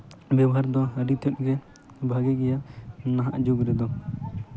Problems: constant background noise, background conversations at intervals